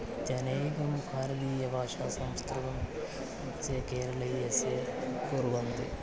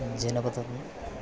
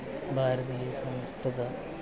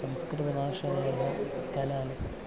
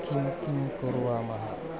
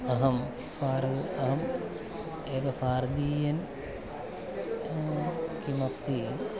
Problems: none marked